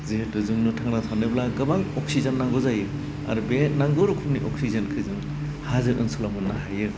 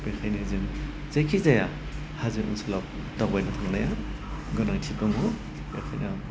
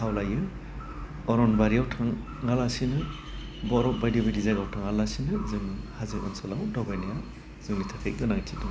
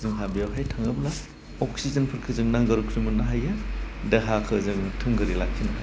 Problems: low volume